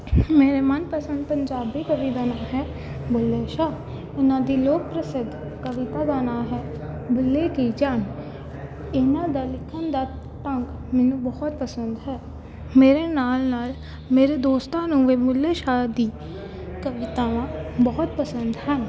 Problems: constant background noise